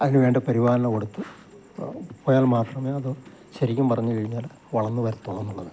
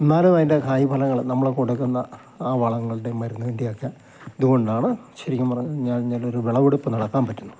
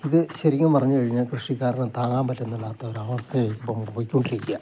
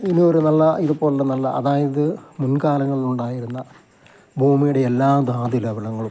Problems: constant background noise, low volume